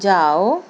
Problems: constant background noise